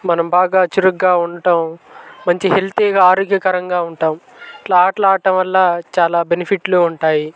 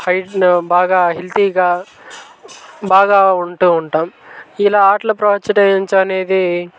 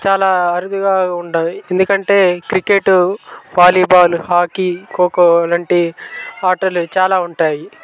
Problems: constant background noise, background conversations at intervals